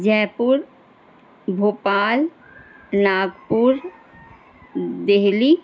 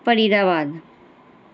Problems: constant background noise